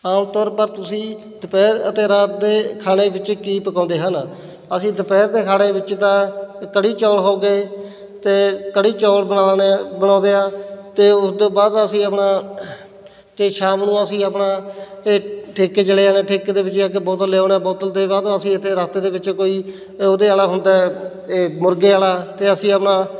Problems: none marked